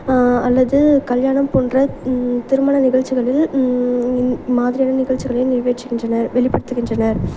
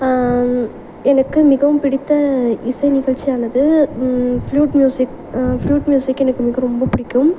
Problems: none marked